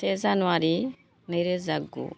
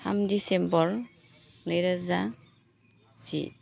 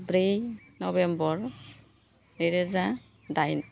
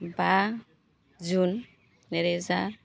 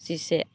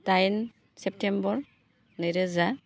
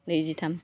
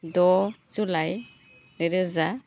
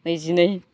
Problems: constant background noise